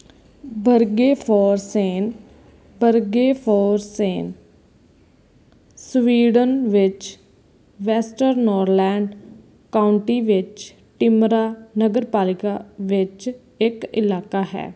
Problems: background sounds at intervals